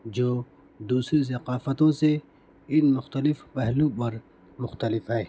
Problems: background sounds at intervals